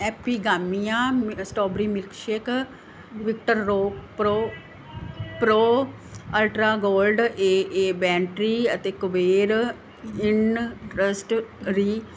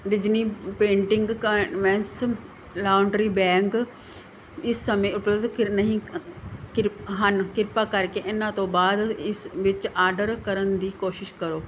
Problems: background conversations at intervals